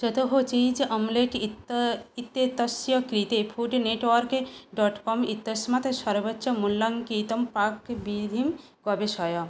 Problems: none marked